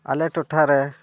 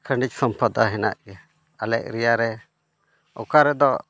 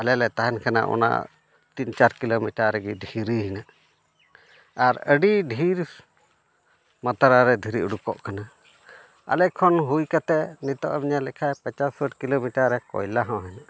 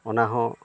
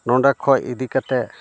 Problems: background sounds at intervals